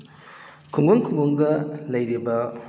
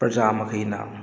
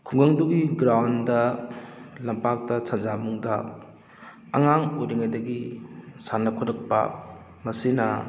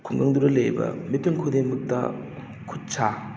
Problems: background sounds at intervals